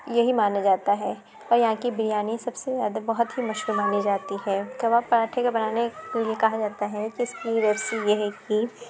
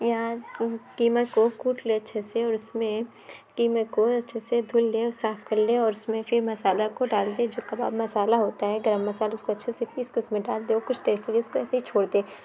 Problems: constant background noise